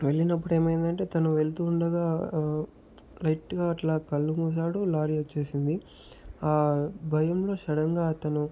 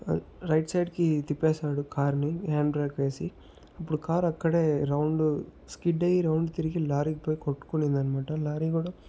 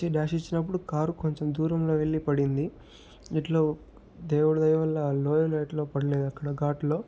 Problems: background sounds at intervals, low volume